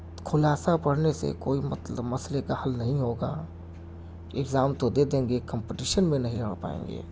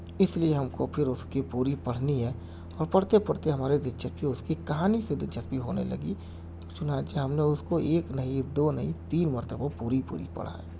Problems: constant background noise